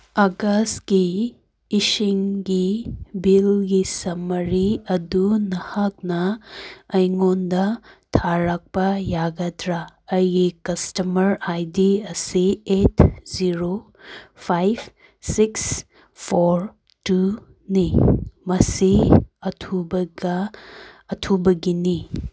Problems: background sounds at intervals